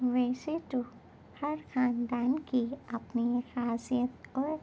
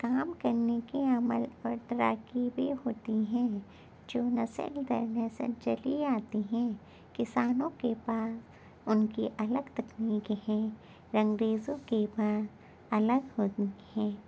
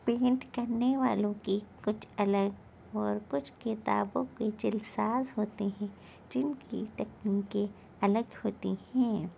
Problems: constant background noise